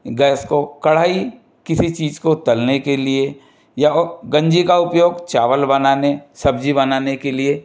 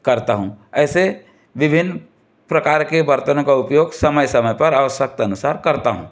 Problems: background sounds at intervals